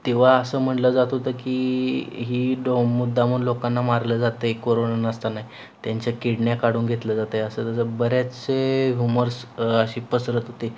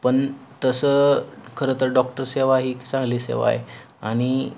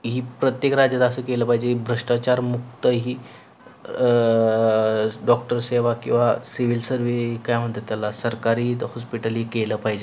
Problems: none marked